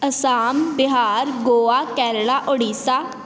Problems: none marked